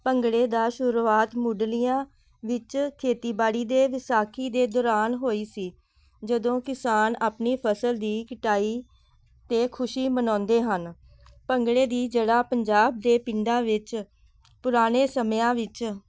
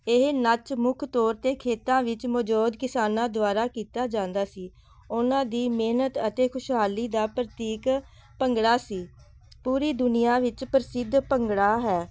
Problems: none marked